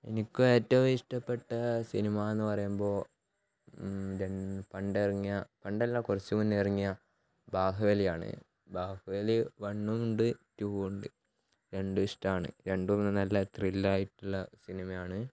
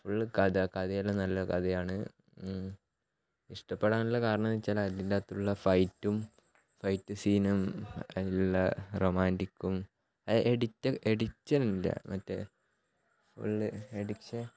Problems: background sounds at intervals, low volume